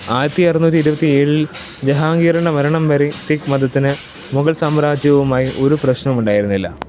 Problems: constant background noise